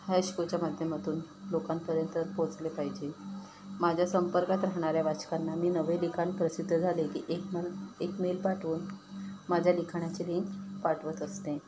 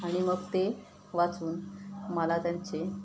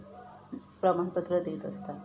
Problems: constant background noise